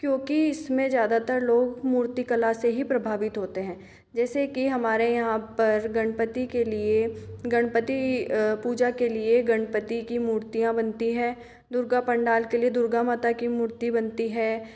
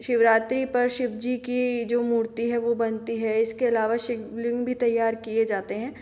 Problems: background sounds at intervals